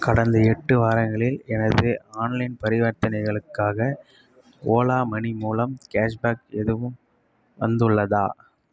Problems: none marked